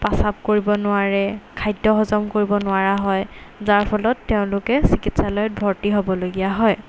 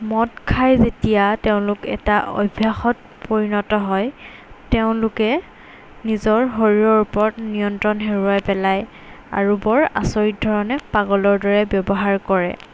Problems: constant background noise